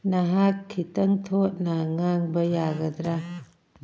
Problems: none marked